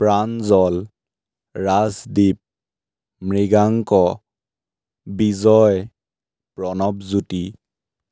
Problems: none marked